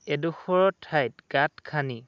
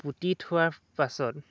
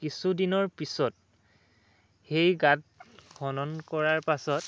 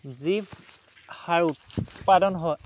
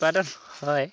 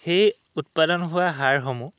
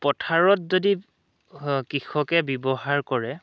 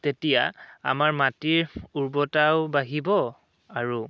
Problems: none marked